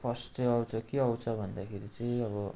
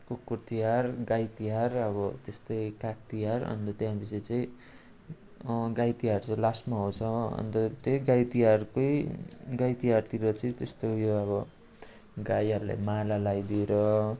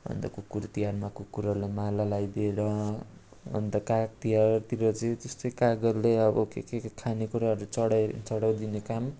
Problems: constant background noise, continuous background conversations